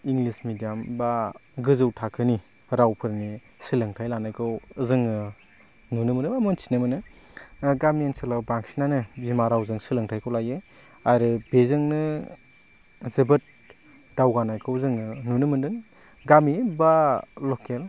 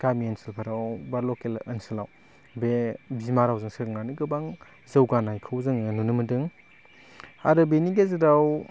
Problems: low volume